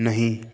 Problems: echo